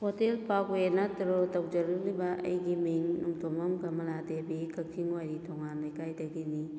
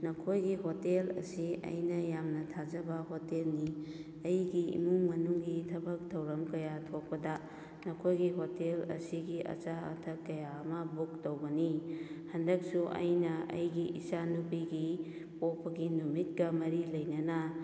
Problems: none marked